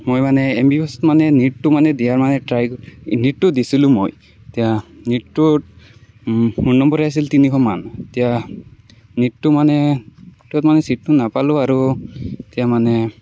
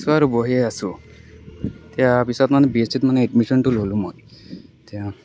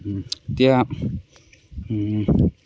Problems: none marked